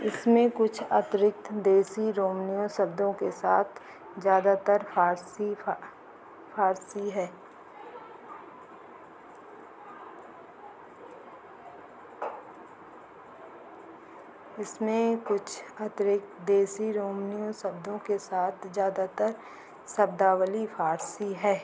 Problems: low volume